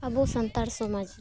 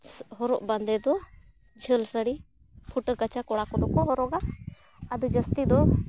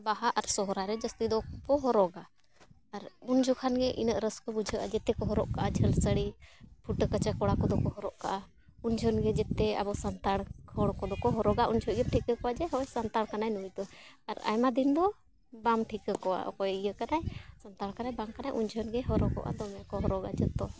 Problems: constant background noise